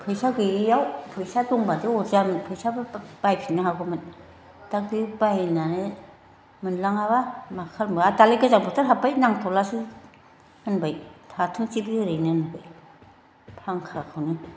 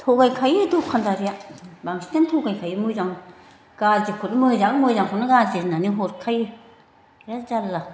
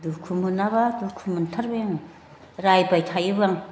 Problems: background conversations at intervals